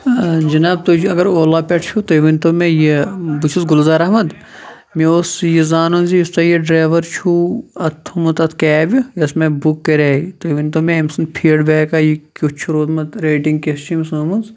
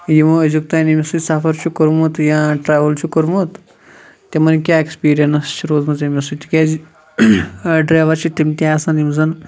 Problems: background conversations at intervals